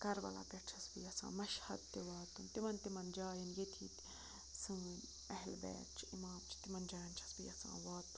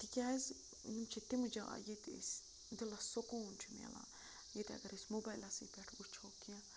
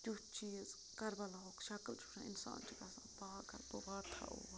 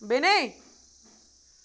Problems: constant background noise, background conversations at intervals